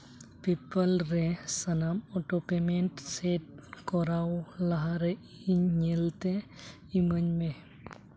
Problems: background sounds at intervals